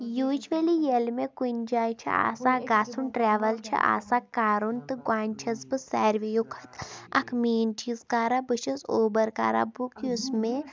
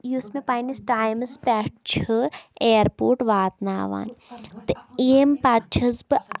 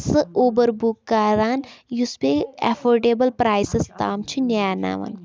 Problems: background sounds at intervals